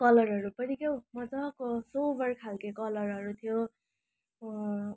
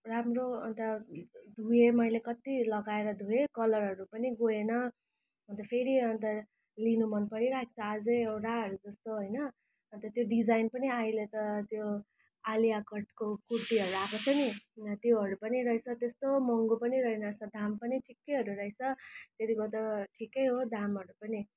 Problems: constant background noise